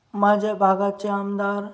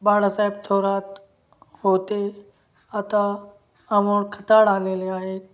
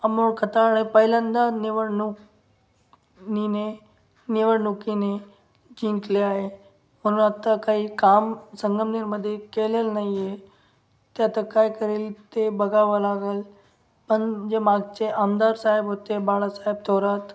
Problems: background sounds at intervals